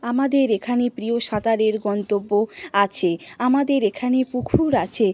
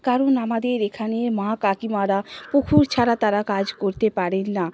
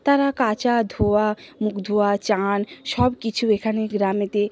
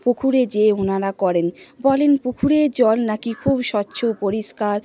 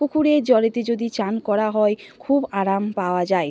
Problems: constant background noise, background conversations at intervals